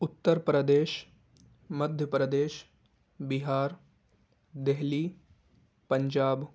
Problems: background sounds at intervals